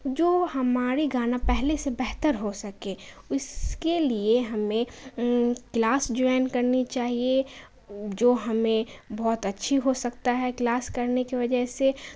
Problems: constant background noise